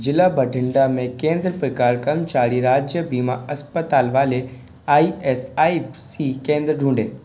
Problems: constant background noise